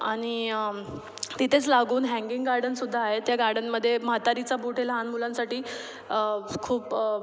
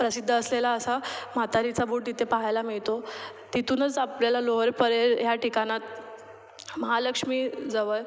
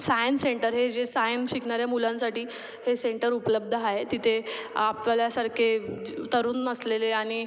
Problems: none marked